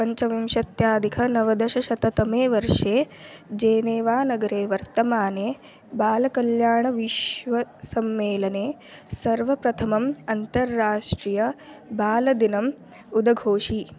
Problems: constant background noise, continuous background conversations